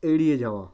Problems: constant background noise